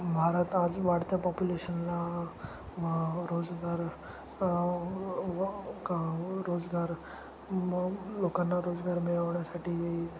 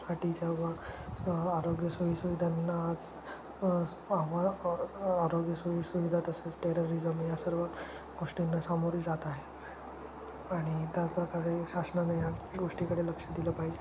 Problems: constant background noise, background conversations at intervals